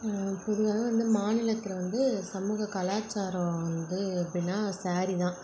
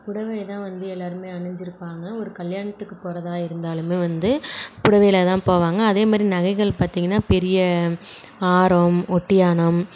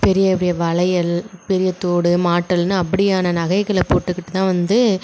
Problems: none marked